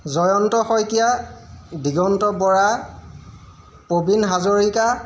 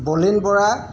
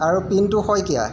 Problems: none marked